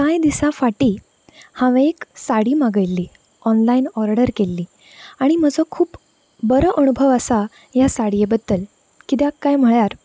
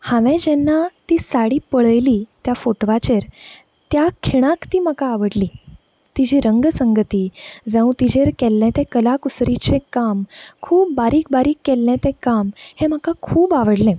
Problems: constant background noise